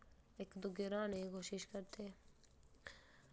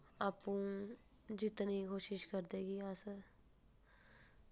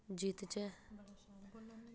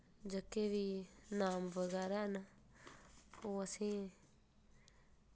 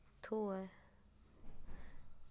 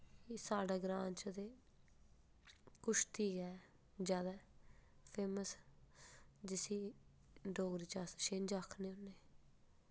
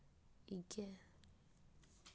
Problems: background sounds at intervals